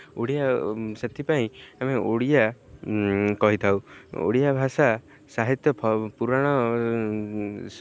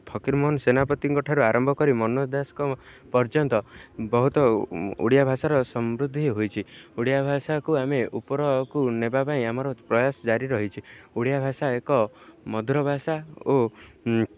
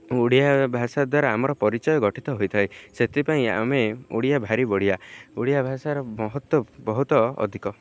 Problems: none marked